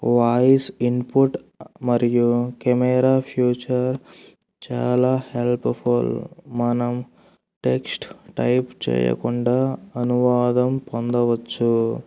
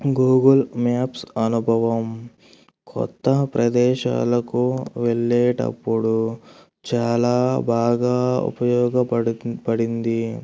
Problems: none marked